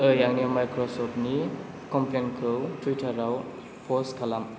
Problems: constant background noise